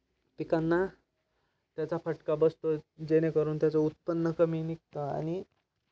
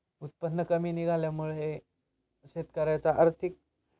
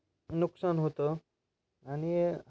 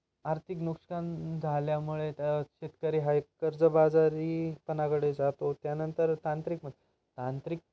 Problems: none marked